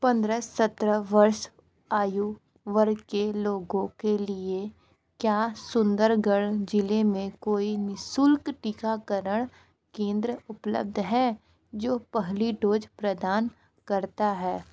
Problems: background sounds at intervals, background conversations at intervals